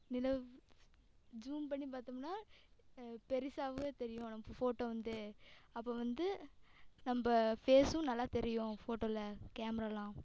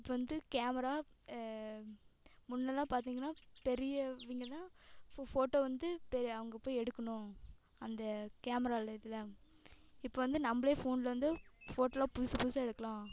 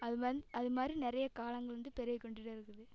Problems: background sounds at intervals, echo